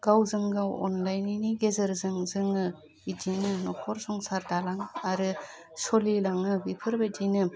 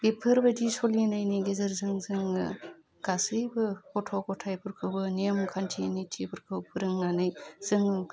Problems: constant background noise